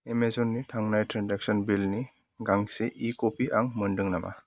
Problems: background sounds at intervals